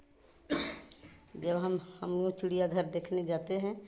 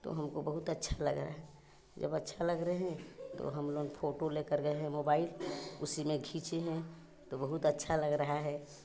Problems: background sounds at intervals